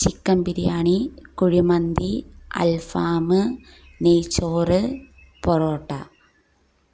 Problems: low volume